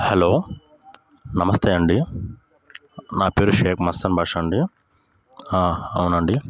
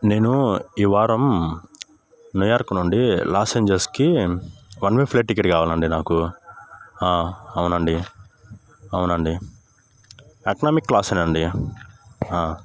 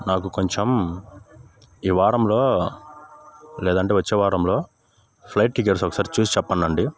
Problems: constant background noise